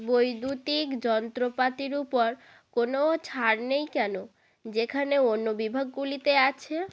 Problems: none marked